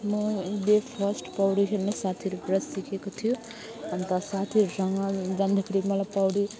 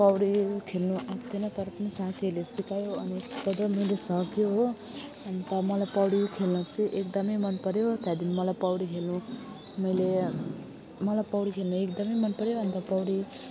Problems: continuous background conversations